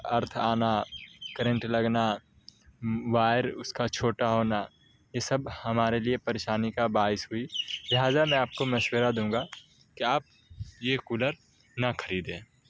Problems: background sounds at intervals